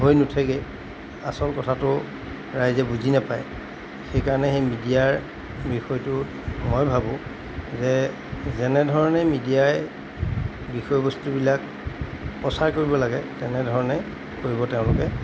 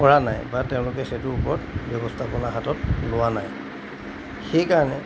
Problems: constant background noise